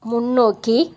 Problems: none marked